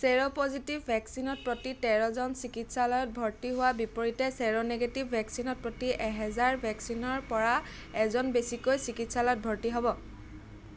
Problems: constant background noise